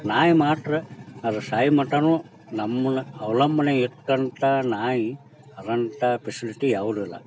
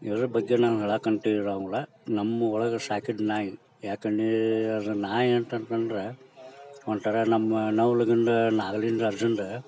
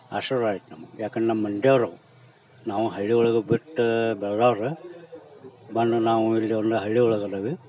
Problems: none marked